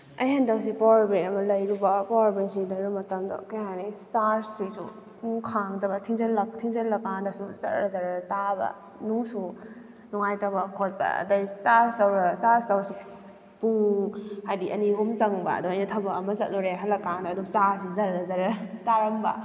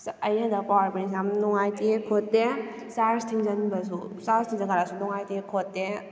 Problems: none marked